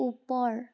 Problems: constant background noise